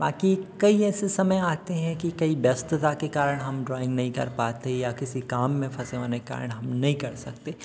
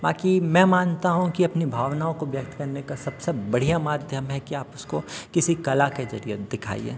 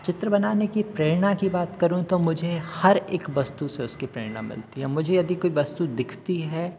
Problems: background sounds at intervals